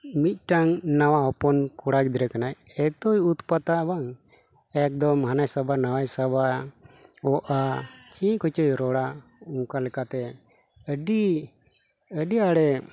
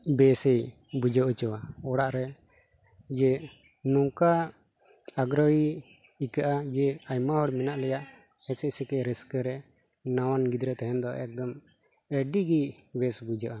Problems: constant background noise